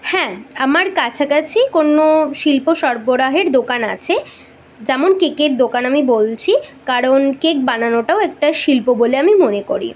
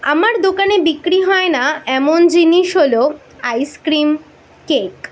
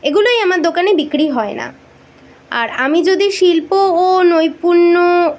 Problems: background sounds at intervals